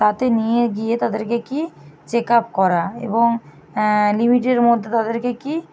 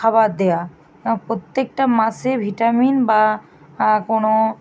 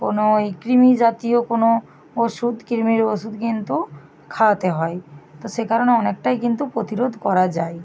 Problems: none marked